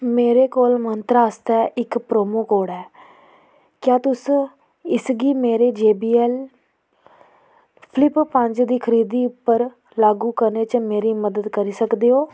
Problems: none marked